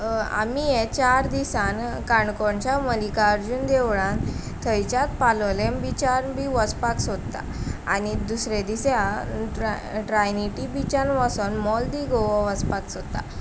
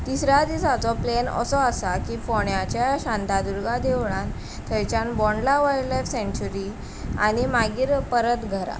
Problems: none marked